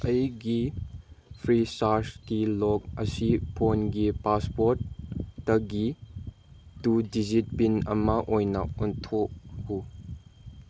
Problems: background sounds at intervals